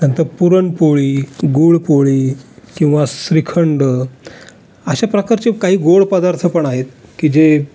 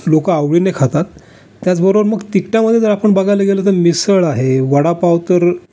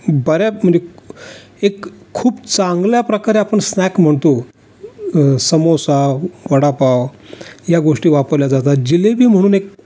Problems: none marked